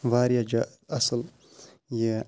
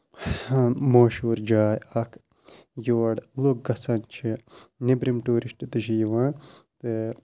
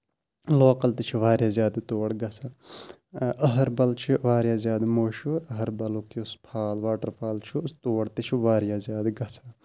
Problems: constant background noise, low volume